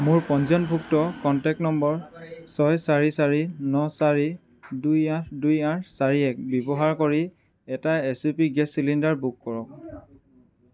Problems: constant background noise